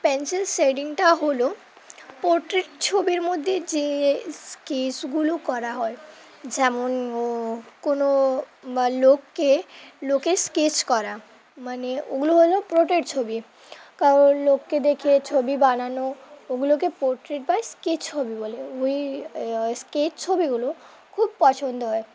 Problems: none marked